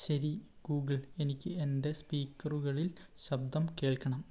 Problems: low volume